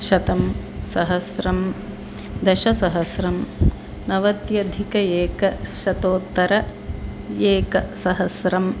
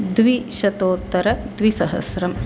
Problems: constant background noise